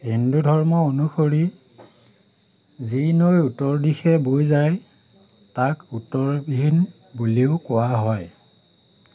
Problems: constant background noise